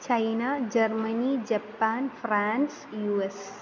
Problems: constant background noise